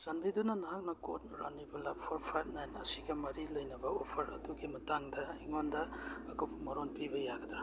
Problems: background sounds at intervals